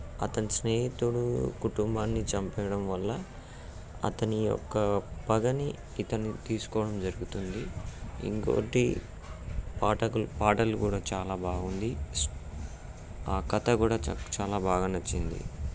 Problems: background sounds at intervals